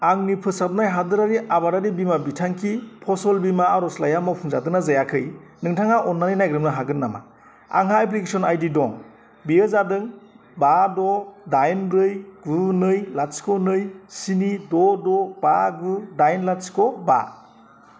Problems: none marked